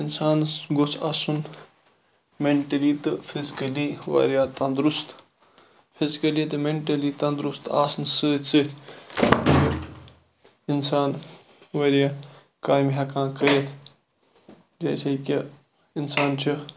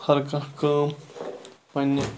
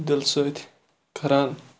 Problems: none marked